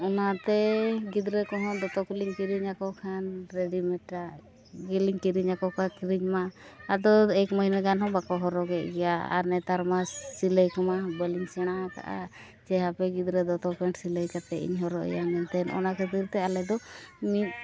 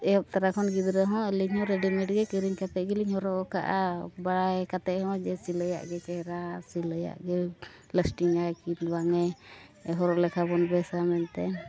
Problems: constant background noise, continuous background conversations, low volume